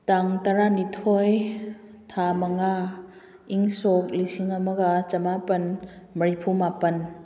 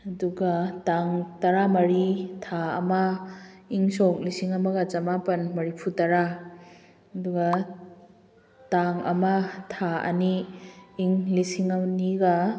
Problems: none marked